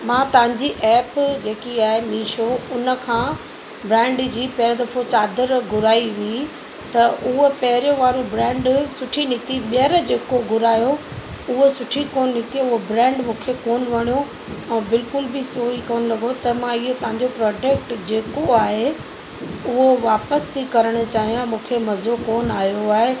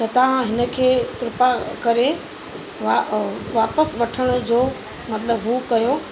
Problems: constant background noise